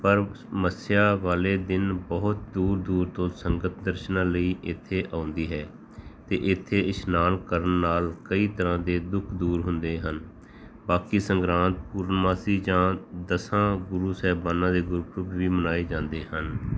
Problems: background sounds at intervals